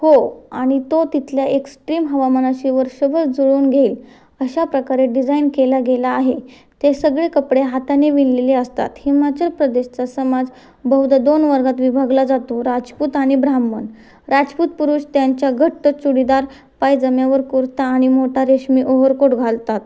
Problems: constant background noise